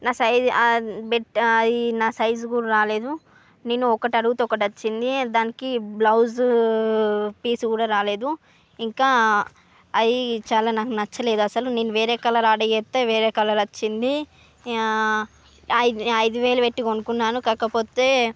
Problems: none marked